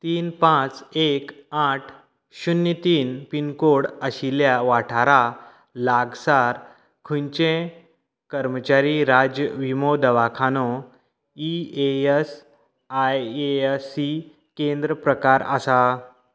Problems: background sounds at intervals, background conversations at intervals